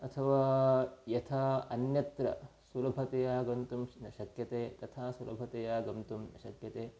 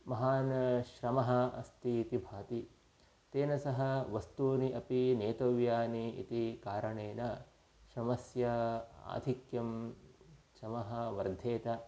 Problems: low volume